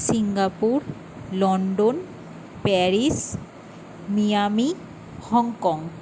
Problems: constant background noise